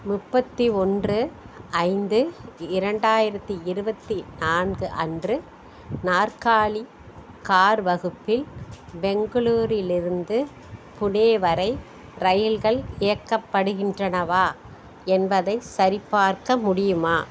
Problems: constant background noise